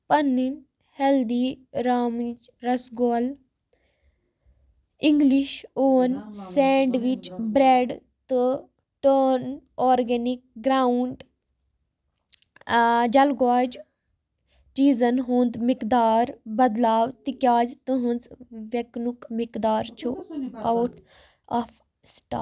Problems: none marked